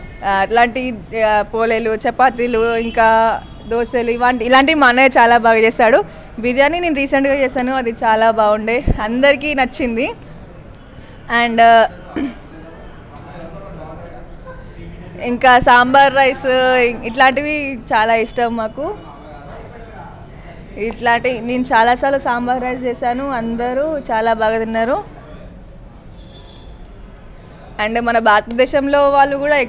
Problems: constant background noise